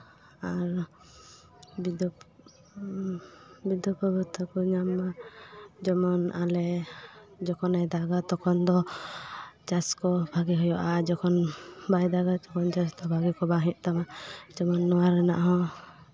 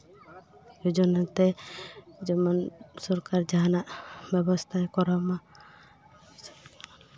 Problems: none marked